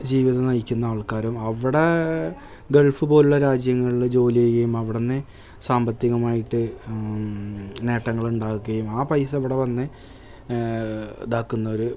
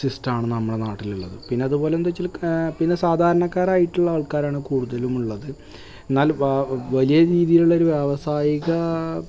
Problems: background sounds at intervals